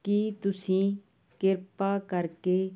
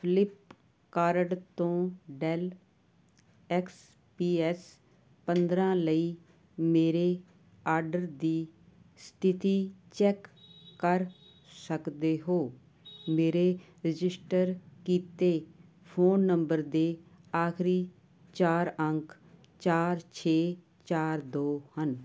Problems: none marked